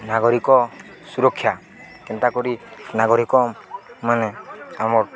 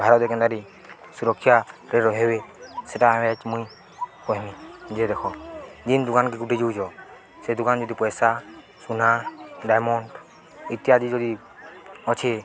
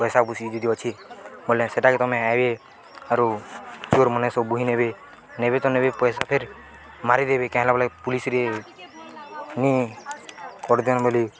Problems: constant background noise, continuous background conversations